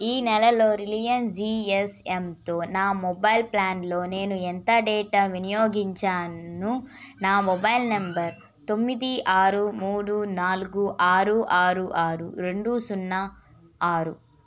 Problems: background sounds at intervals